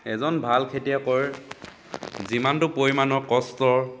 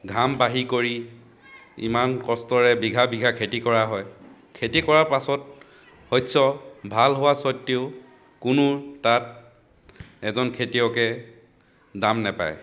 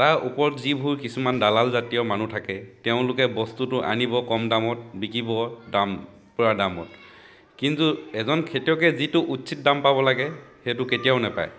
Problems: continuous background conversations